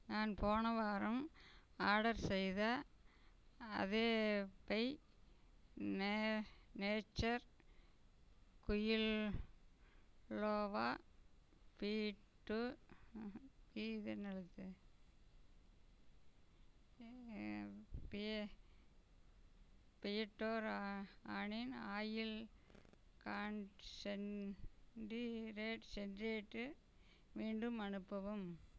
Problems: background sounds at intervals